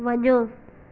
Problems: constant background noise, echo